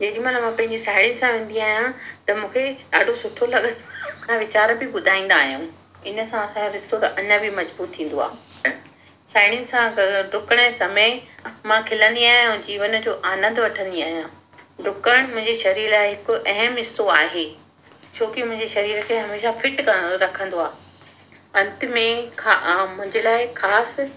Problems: constant background noise, echo